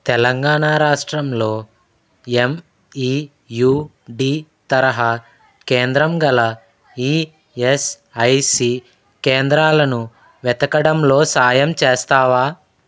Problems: none marked